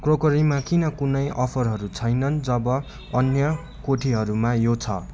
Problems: constant background noise